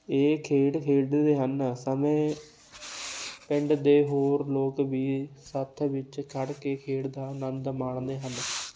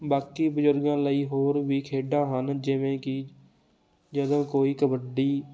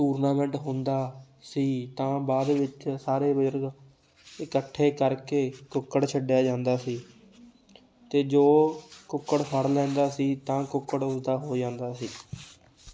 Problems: none marked